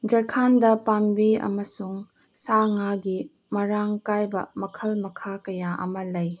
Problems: background sounds at intervals